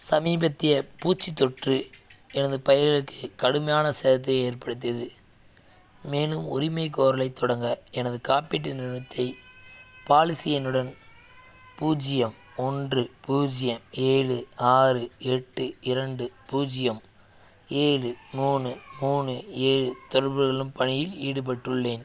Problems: none marked